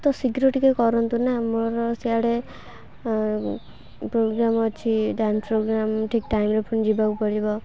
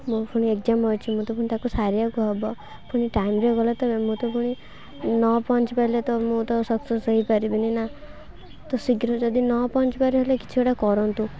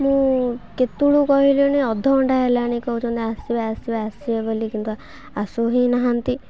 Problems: low volume